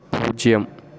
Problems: constant background noise